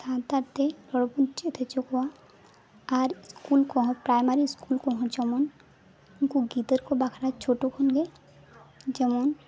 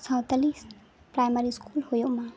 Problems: constant background noise, background conversations at intervals